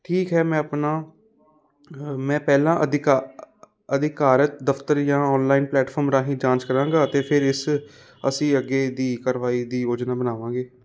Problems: constant background noise